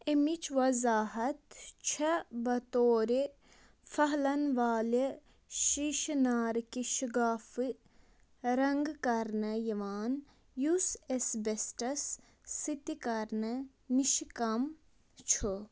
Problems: constant background noise